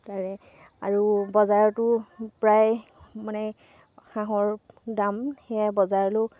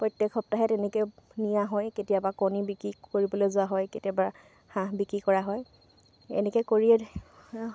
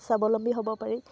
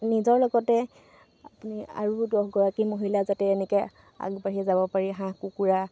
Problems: constant background noise